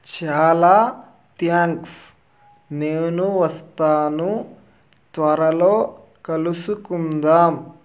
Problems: constant background noise